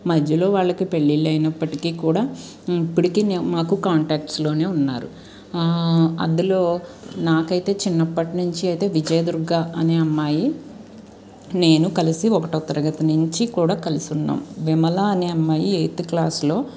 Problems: none marked